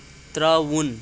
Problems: constant background noise